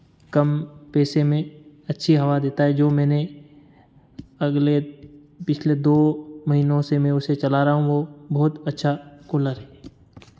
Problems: constant background noise